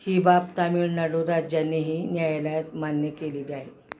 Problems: constant background noise, background conversations at intervals